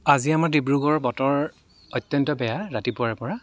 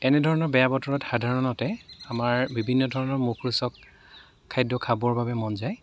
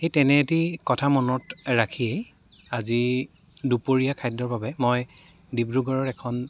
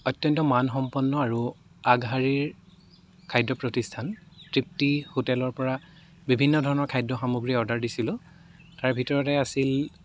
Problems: none marked